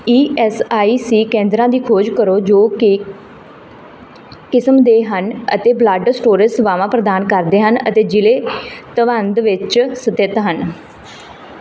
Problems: background sounds at intervals